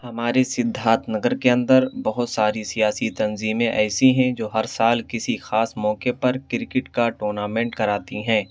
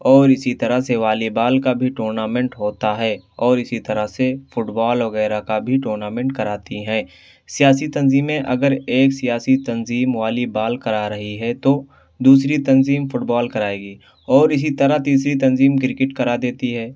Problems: none marked